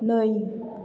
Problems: echo